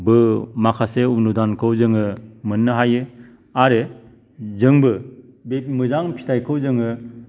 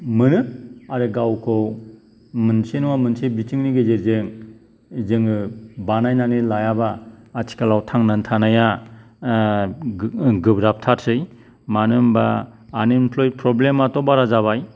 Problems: background sounds at intervals